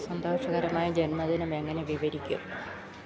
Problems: background sounds at intervals